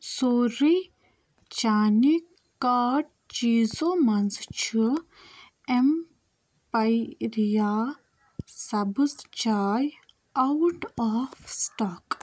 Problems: none marked